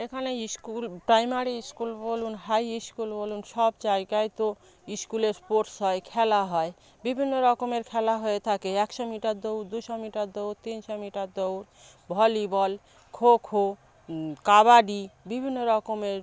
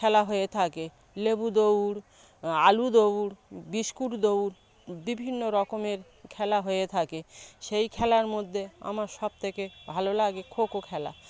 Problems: background sounds at intervals, background conversations at intervals